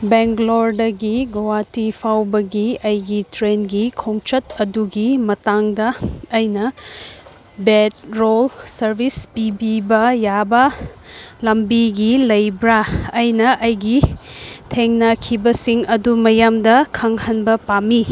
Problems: background sounds at intervals